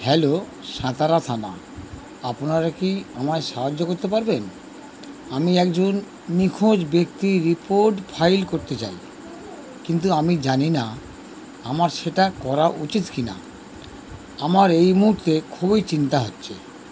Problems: constant background noise